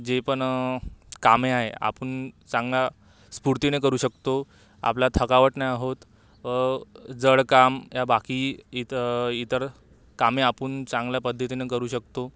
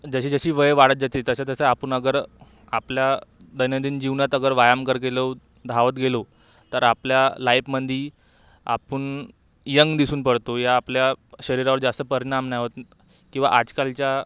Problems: background sounds at intervals